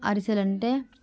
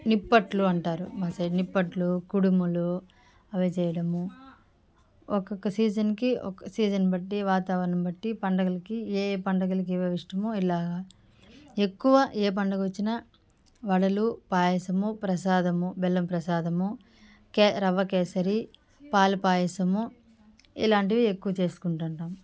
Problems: background sounds at intervals, background conversations at intervals